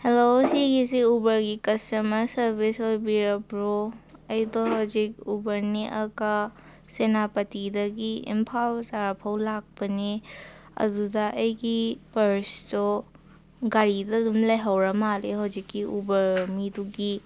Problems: none marked